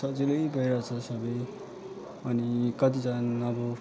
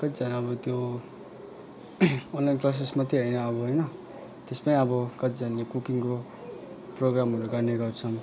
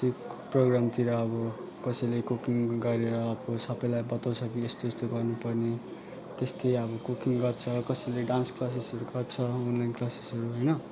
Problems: constant background noise, continuous background conversations